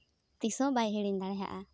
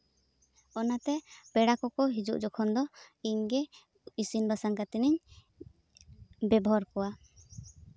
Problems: none marked